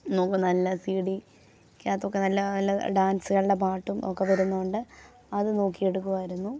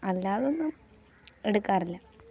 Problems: background sounds at intervals